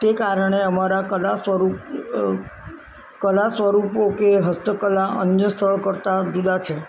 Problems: none marked